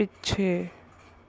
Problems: none marked